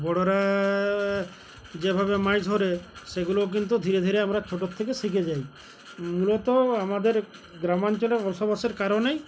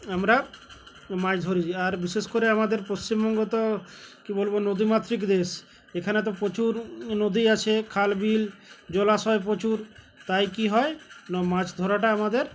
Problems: constant background noise, background conversations at intervals